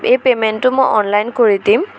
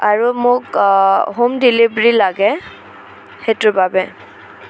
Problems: constant background noise, background conversations at intervals